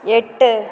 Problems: background sounds at intervals